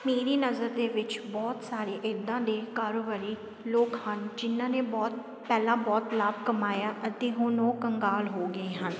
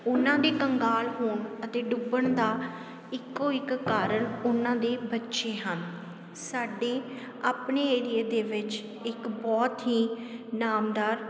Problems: constant background noise